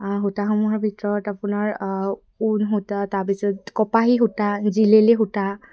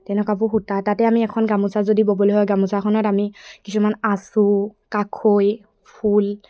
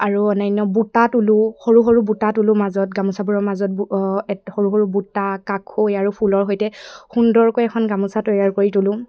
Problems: none marked